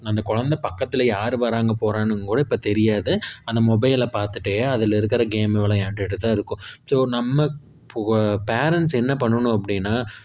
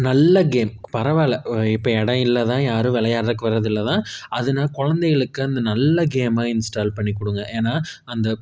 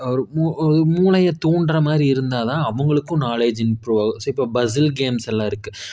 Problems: none marked